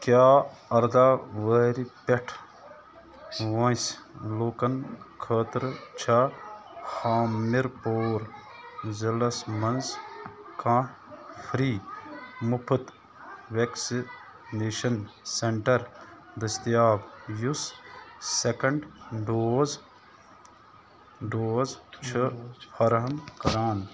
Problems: constant background noise